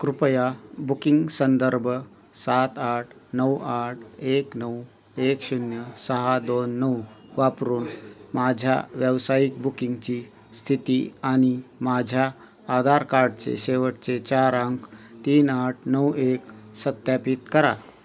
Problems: constant background noise, background conversations at intervals